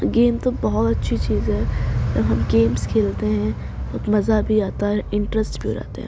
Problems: constant background noise